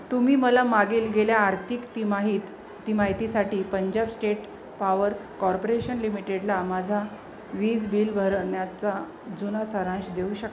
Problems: constant background noise